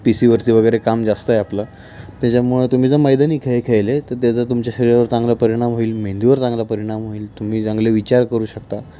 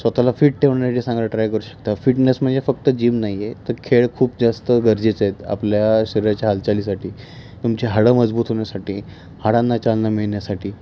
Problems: constant background noise, continuous background conversations